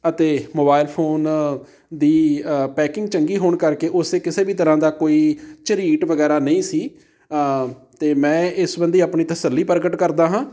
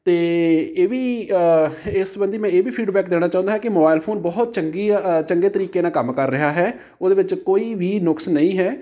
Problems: background sounds at intervals